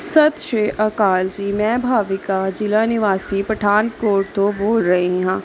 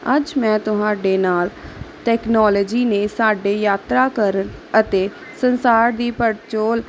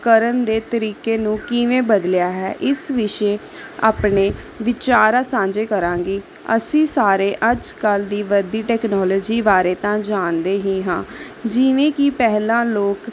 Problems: constant background noise